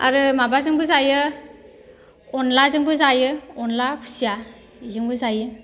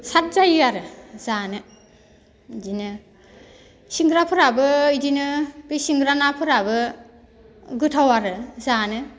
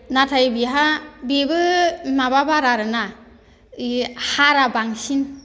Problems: none marked